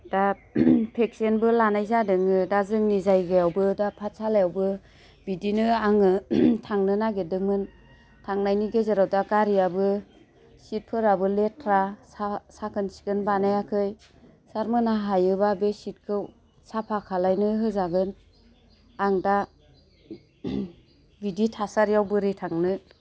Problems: constant background noise